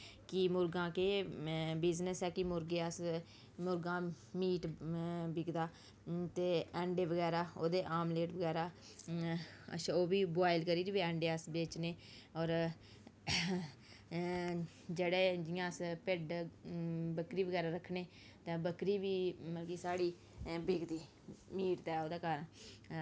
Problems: background sounds at intervals, low volume